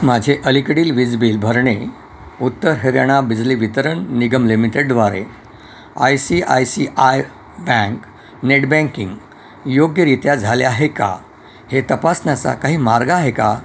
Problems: constant background noise, background conversations at intervals